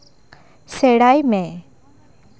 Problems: continuous background conversations